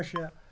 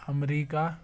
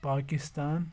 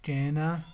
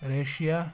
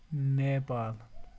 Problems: background sounds at intervals